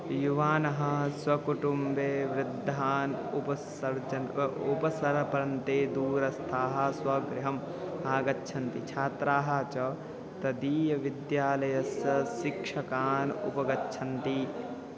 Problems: constant background noise, continuous background conversations